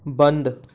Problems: none marked